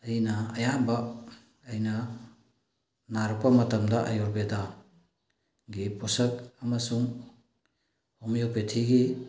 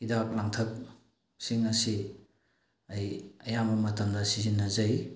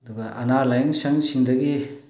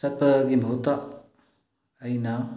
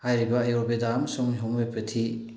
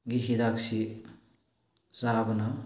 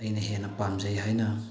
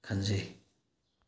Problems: low volume